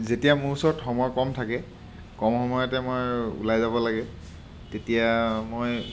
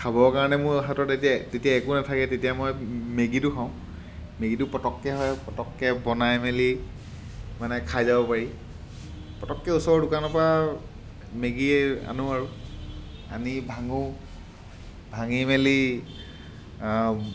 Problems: background sounds at intervals